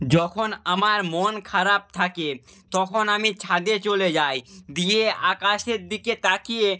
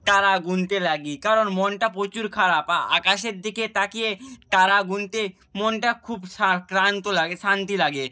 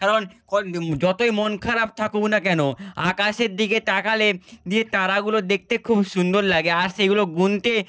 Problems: none marked